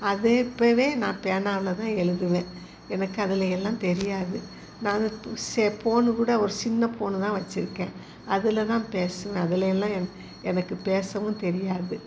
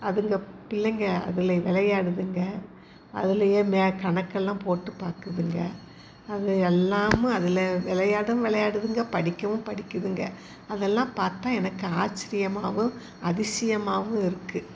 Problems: constant background noise